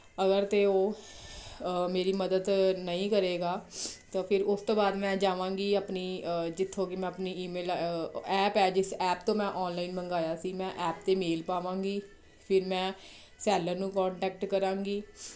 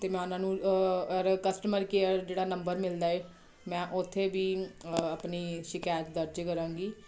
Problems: none marked